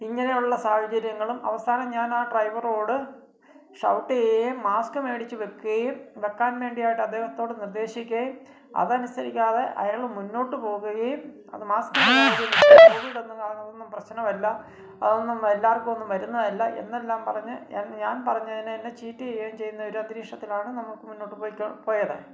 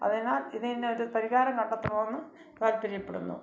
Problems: background sounds at intervals